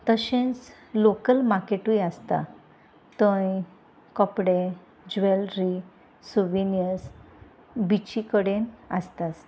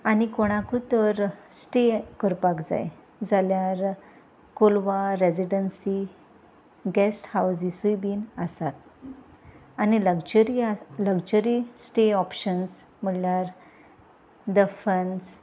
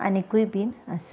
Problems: constant background noise